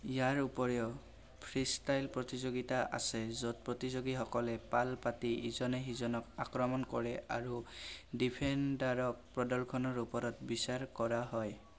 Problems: constant background noise